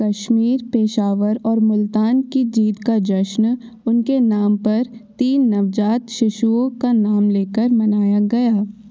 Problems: constant background noise